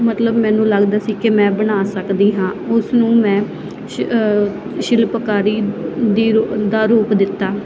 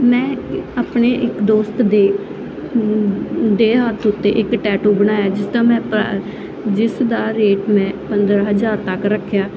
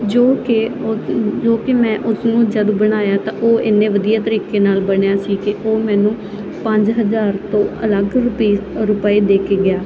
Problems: constant background noise